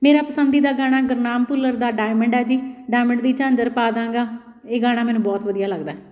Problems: background sounds at intervals